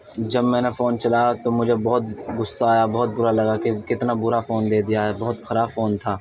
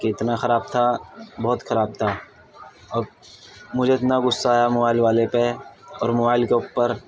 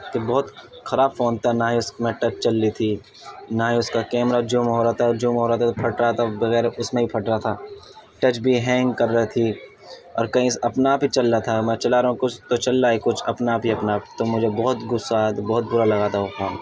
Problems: none marked